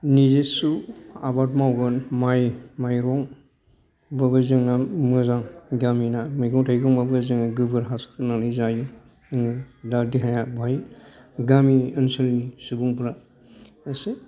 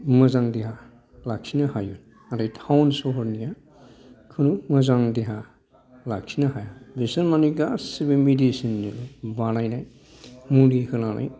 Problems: background sounds at intervals, background conversations at intervals